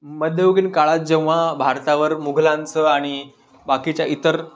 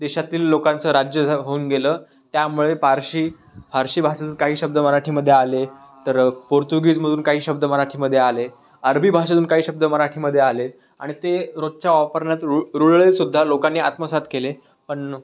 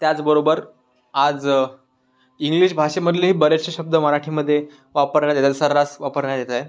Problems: constant background noise